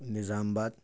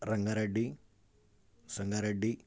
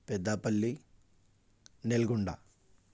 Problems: none marked